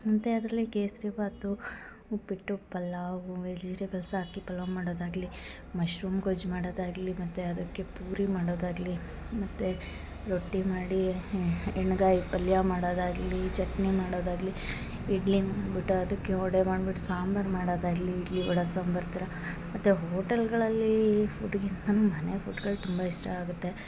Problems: background sounds at intervals